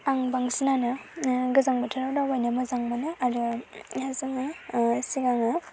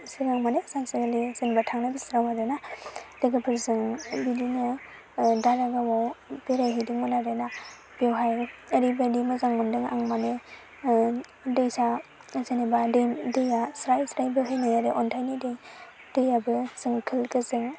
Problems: constant background noise